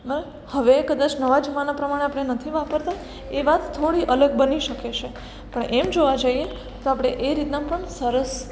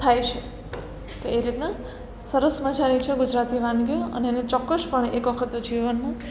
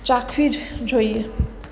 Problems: none marked